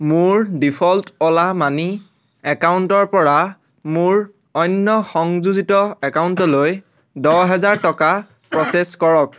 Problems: background sounds at intervals